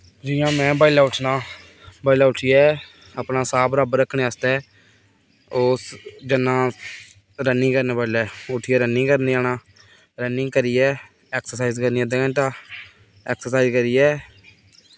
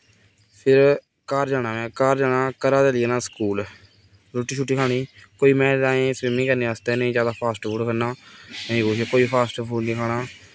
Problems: none marked